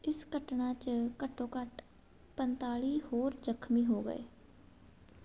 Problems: none marked